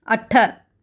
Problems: none marked